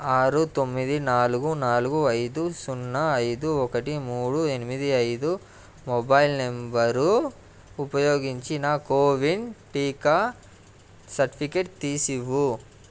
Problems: none marked